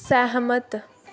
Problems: none marked